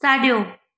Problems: echo